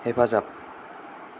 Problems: none marked